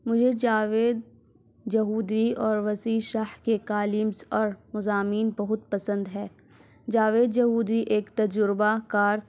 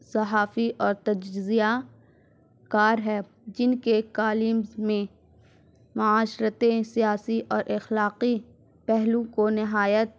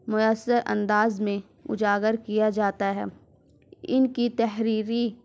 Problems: none marked